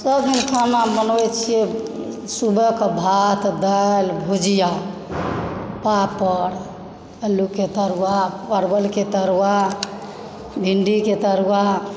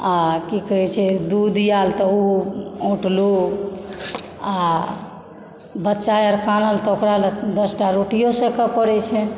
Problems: background sounds at intervals